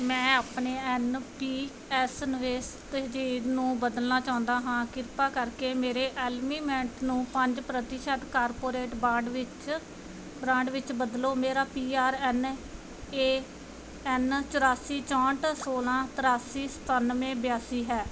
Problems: none marked